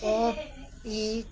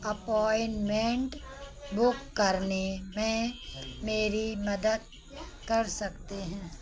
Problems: none marked